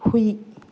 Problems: low volume